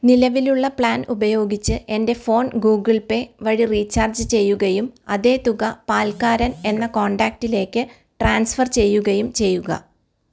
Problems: none marked